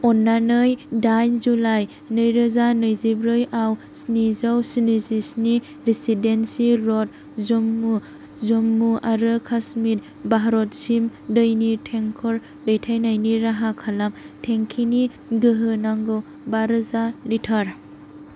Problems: constant background noise